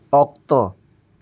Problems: constant background noise